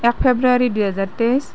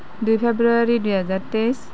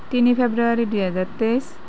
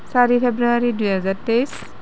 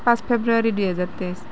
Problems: none marked